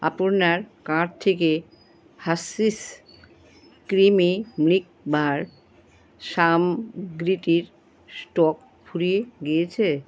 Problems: none marked